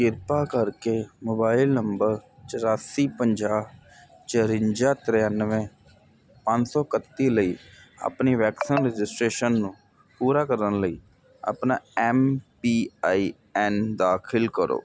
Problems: none marked